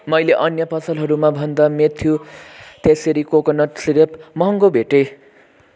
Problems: none marked